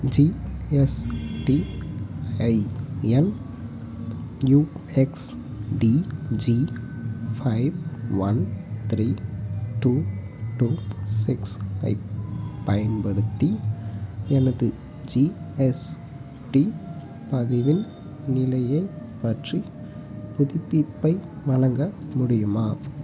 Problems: background sounds at intervals